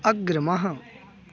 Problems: continuous background conversations